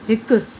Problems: constant background noise